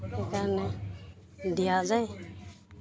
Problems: continuous background conversations